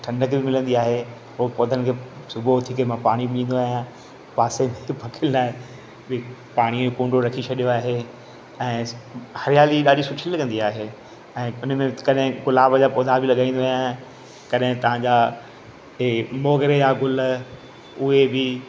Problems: constant background noise, echo